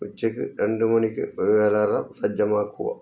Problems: low volume